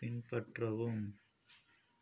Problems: background sounds at intervals, low volume